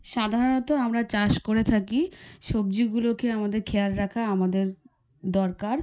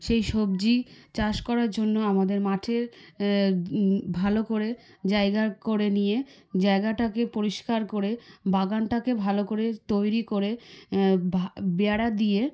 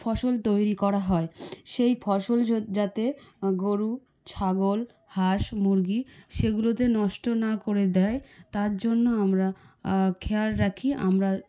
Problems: background sounds at intervals, background conversations at intervals